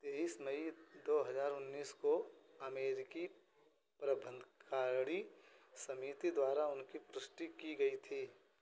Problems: constant background noise